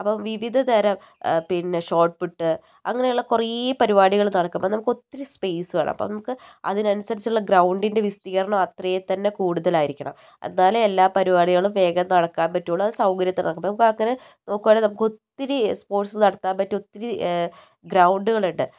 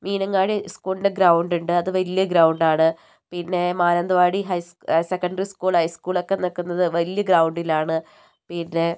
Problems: none marked